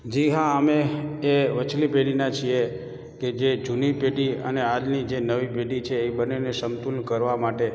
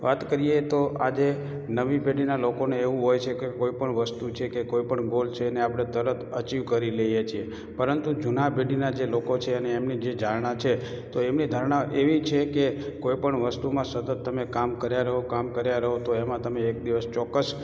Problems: background sounds at intervals, echo